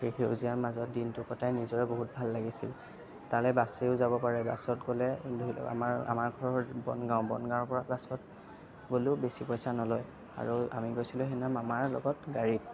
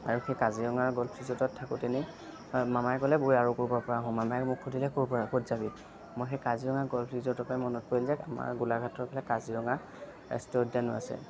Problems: none marked